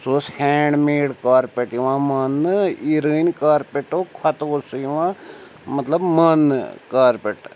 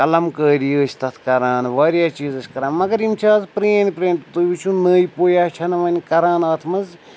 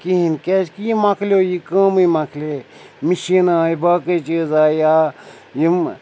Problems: constant background noise